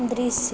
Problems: none marked